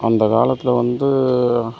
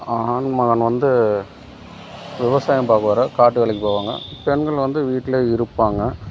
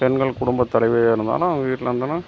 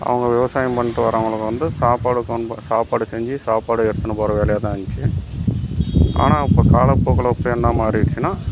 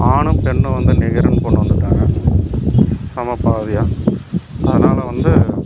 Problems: background sounds at intervals